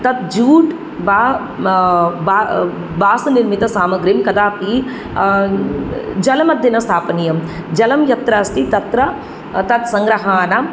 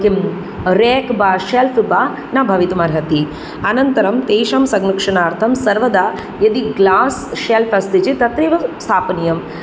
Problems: none marked